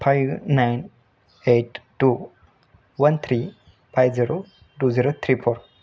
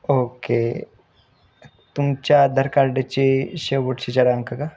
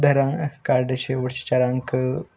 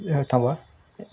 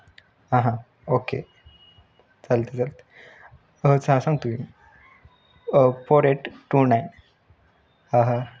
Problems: none marked